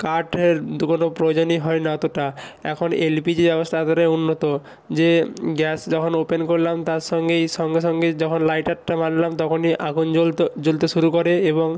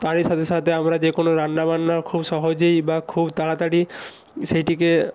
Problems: constant background noise